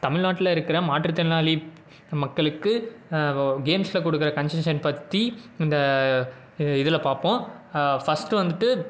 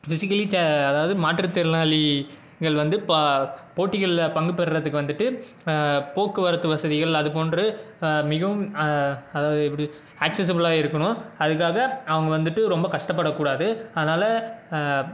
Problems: background sounds at intervals